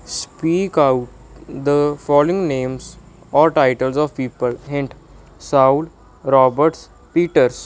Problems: background sounds at intervals